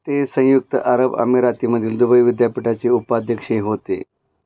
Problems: background sounds at intervals